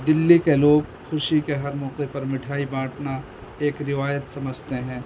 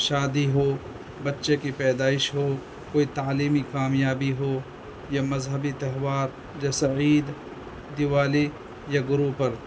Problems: constant background noise